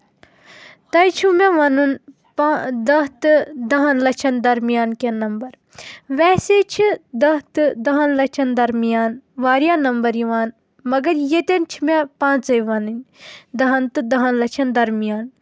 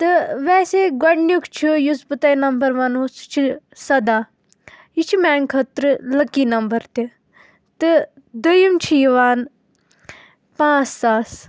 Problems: background sounds at intervals